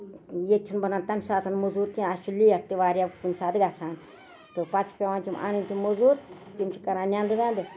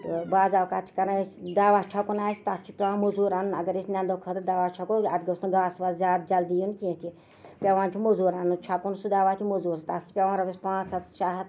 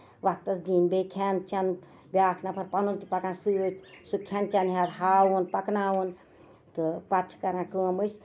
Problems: none marked